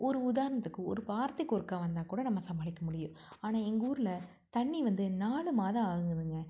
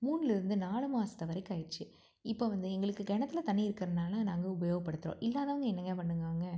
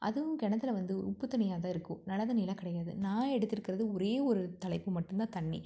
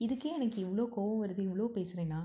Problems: low volume